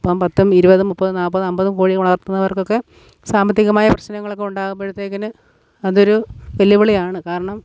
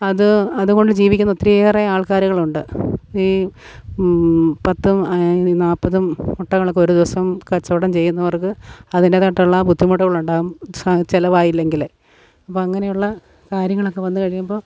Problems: none marked